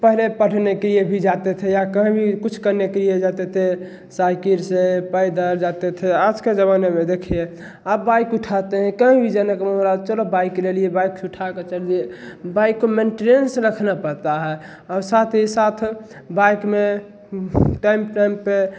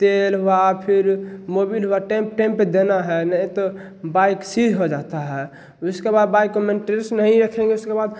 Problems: none marked